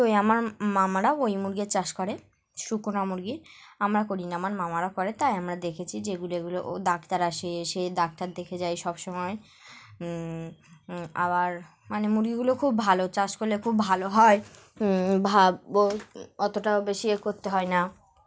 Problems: background sounds at intervals, background conversations at intervals